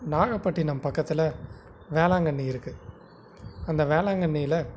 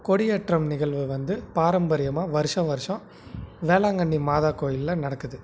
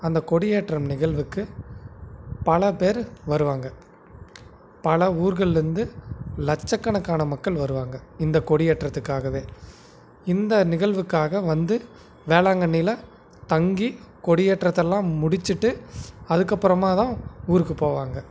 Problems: background sounds at intervals